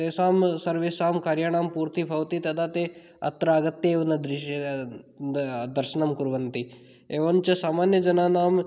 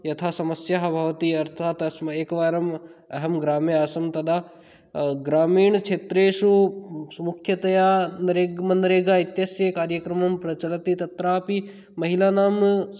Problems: none marked